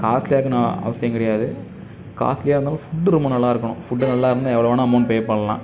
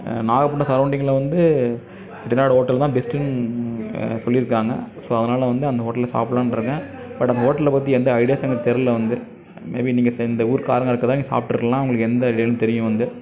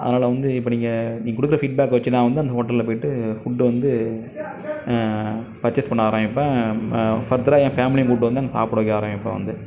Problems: none marked